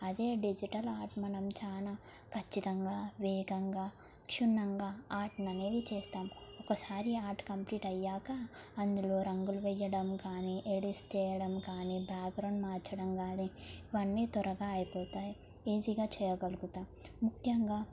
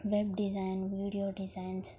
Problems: none marked